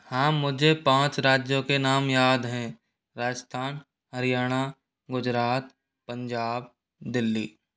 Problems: none marked